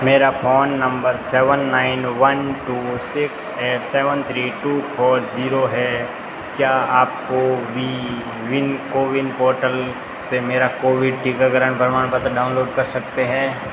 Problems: constant background noise